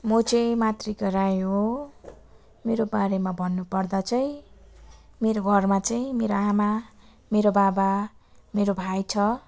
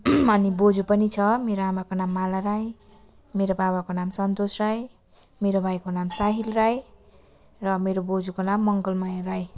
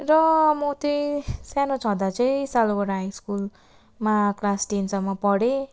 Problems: constant background noise, continuous background conversations